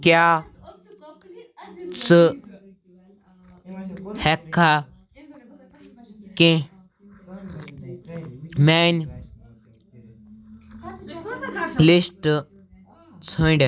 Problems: background sounds at intervals, background conversations at intervals